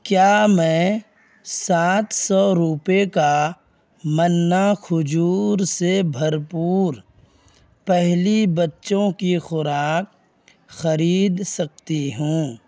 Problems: none marked